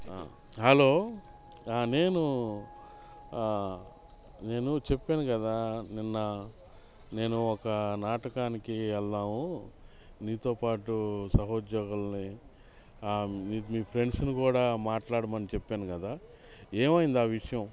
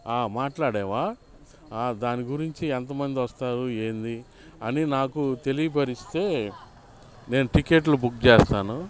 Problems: constant background noise